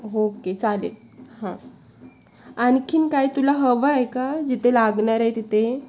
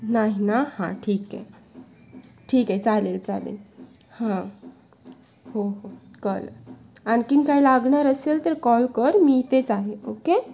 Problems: constant background noise